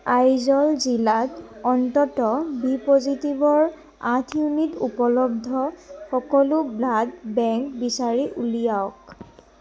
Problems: none marked